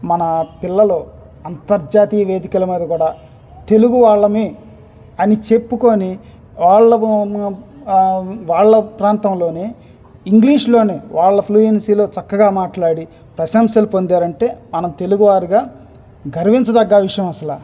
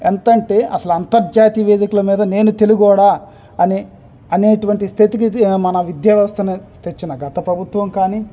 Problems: background sounds at intervals